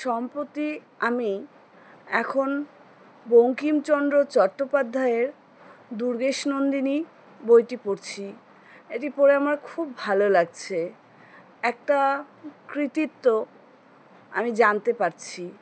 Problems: background sounds at intervals